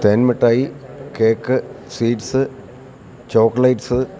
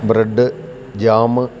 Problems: constant background noise